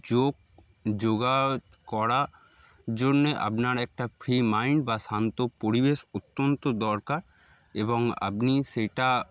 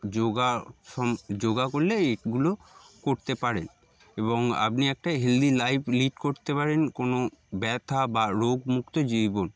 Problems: background sounds at intervals